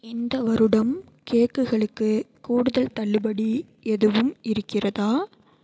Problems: none marked